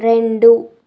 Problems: constant background noise